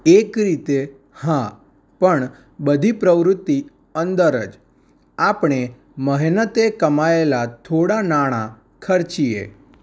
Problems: none marked